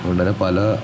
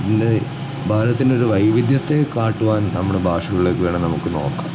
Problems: constant background noise